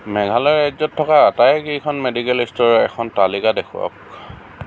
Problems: constant background noise